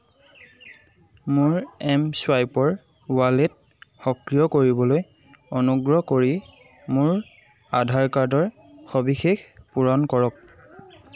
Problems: constant background noise, background conversations at intervals